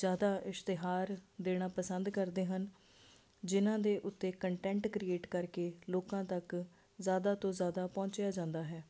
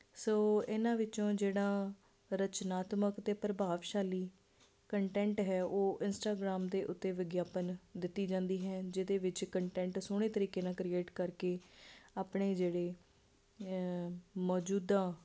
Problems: constant background noise